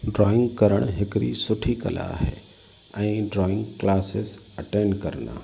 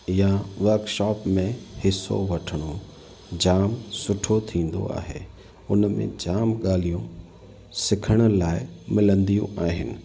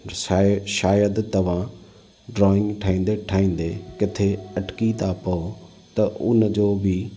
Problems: constant background noise, echo